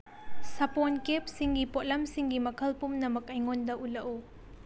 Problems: low volume